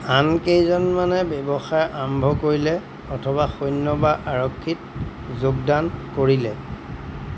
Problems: none marked